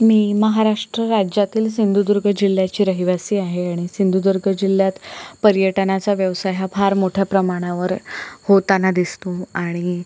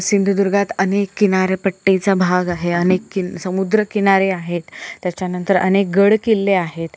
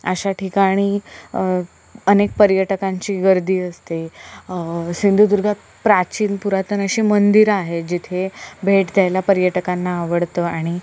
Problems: none marked